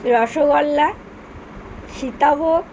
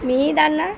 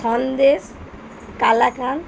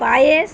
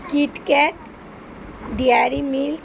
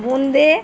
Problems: constant background noise, continuous background conversations